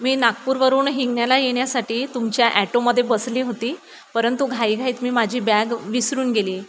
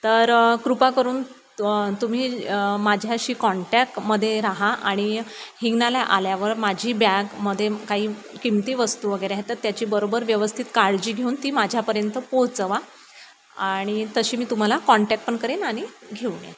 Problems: none marked